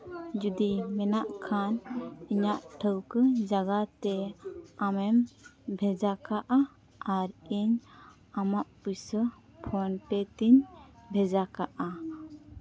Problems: none marked